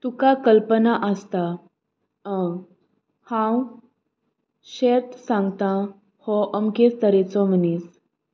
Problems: none marked